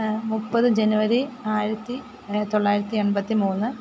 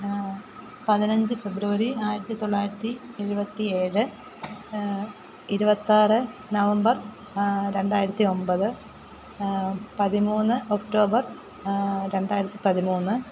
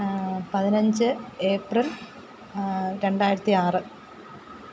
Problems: background sounds at intervals